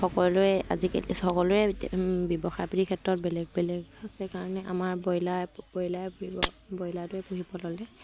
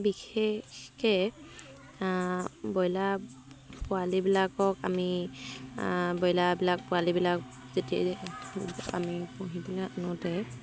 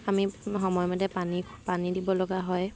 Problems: constant background noise